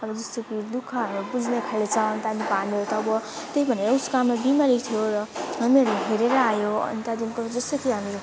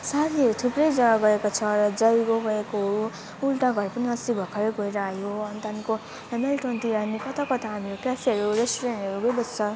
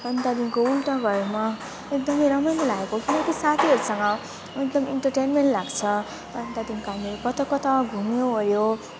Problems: constant background noise, continuous background conversations